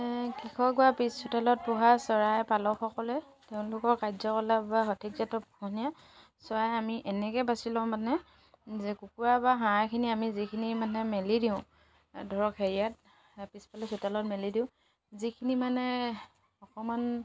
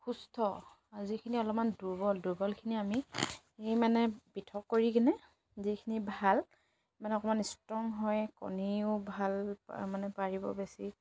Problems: constant background noise